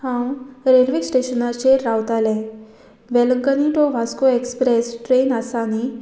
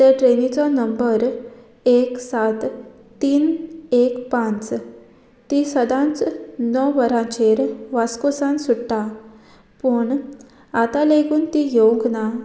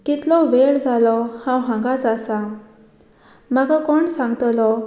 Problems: none marked